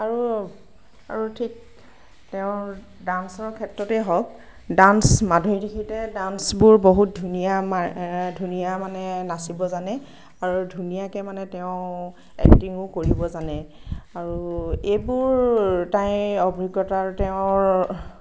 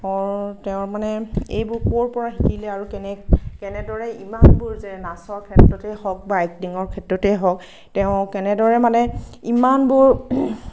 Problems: none marked